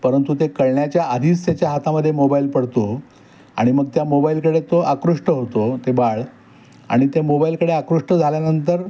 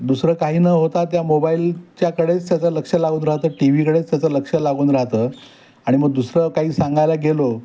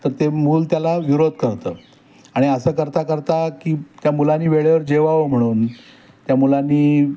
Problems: none marked